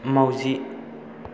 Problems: none marked